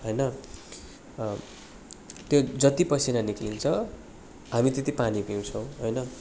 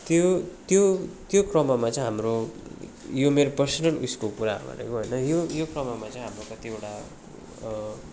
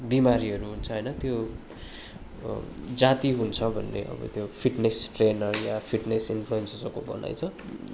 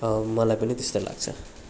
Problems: constant background noise, continuous background conversations